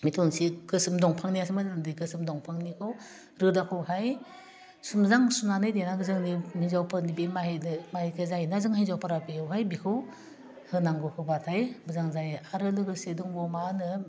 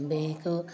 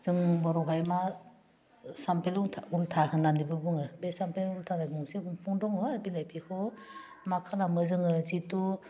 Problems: constant background noise